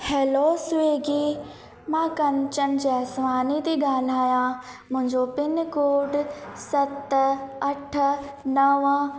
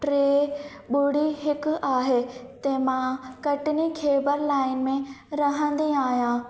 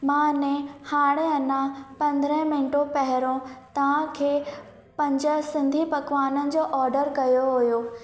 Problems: constant background noise, echo